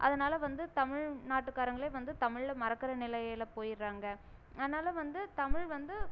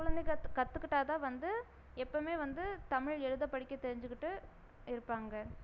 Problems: none marked